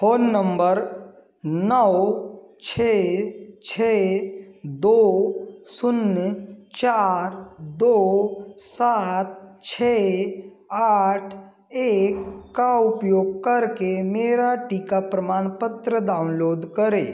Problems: constant background noise